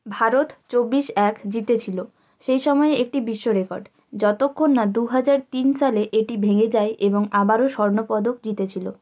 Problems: none marked